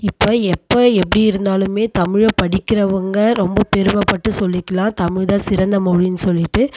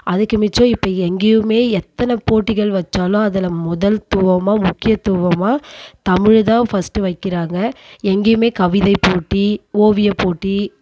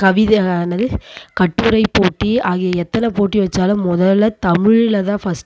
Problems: constant background noise